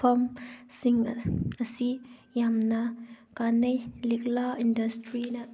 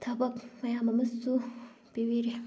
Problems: background sounds at intervals